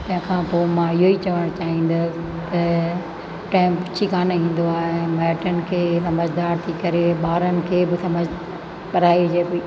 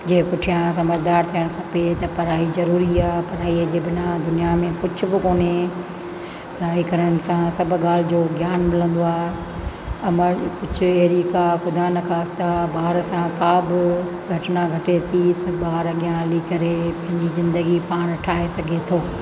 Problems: constant background noise, echo